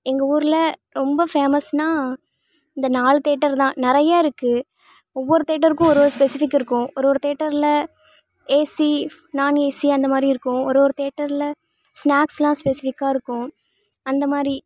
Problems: constant background noise